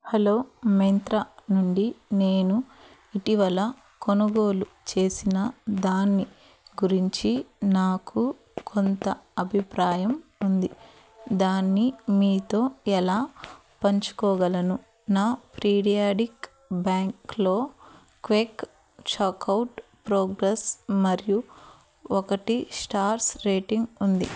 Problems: none marked